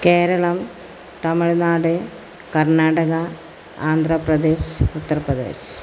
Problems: constant background noise